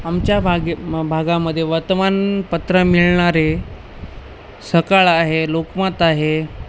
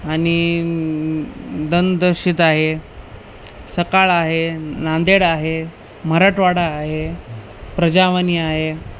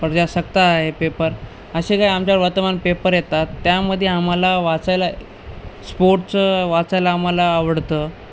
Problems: constant background noise